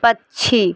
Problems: constant background noise